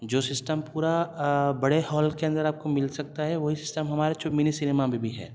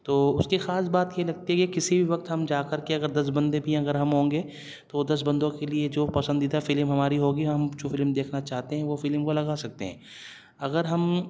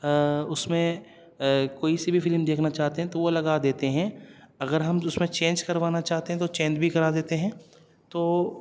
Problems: none marked